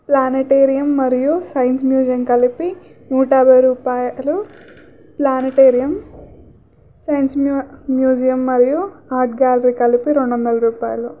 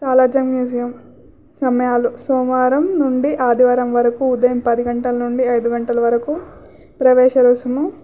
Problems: none marked